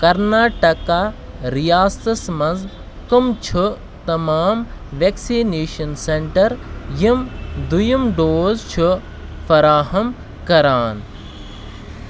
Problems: constant background noise